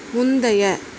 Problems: constant background noise